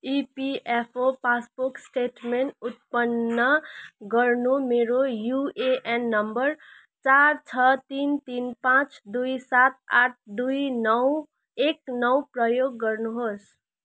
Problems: none marked